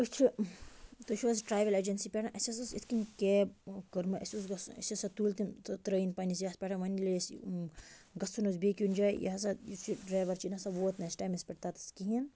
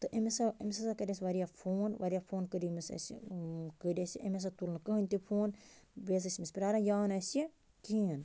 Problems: none marked